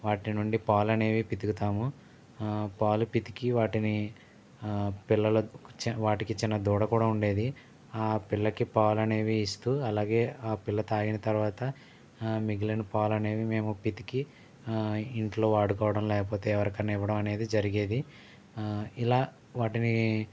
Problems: none marked